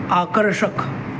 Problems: constant background noise